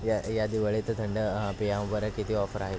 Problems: constant background noise, continuous background conversations, low volume